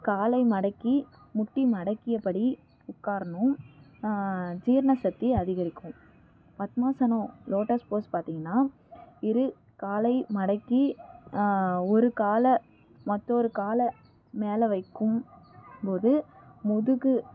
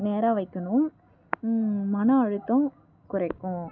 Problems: background sounds at intervals, low volume